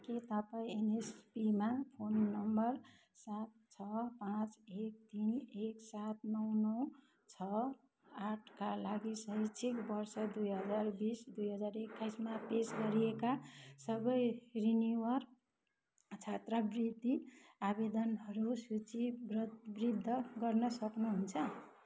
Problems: constant background noise, background conversations at intervals